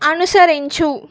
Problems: none marked